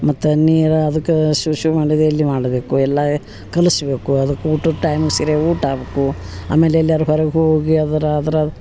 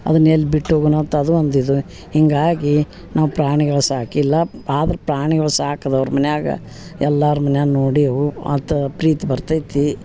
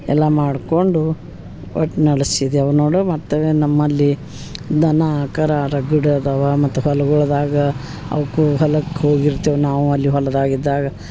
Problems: background sounds at intervals